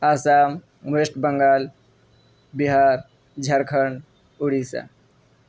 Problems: none marked